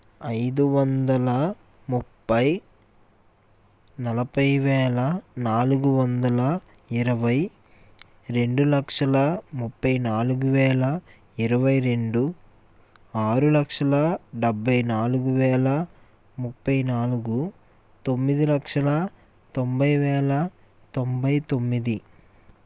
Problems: constant background noise